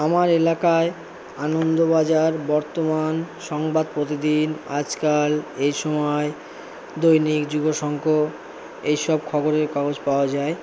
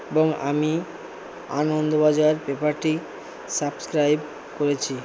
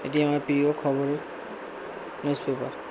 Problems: constant background noise, low volume